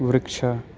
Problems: none marked